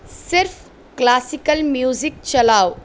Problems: none marked